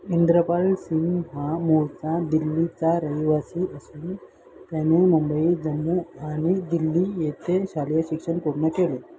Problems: constant background noise